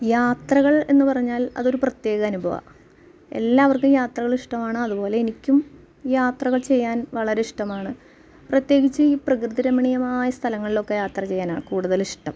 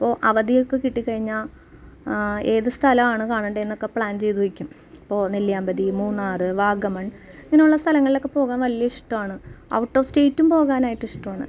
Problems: background sounds at intervals